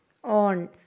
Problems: low volume